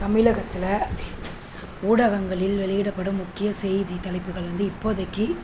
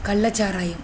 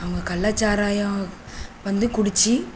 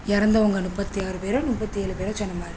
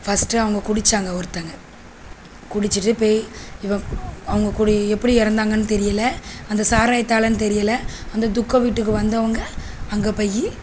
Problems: constant background noise